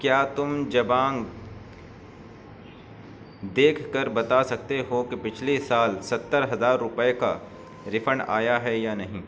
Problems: none marked